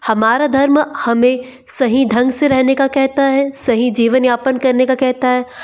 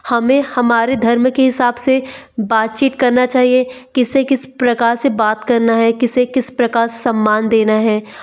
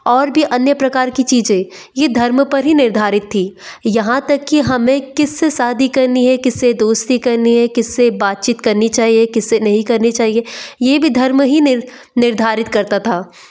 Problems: background sounds at intervals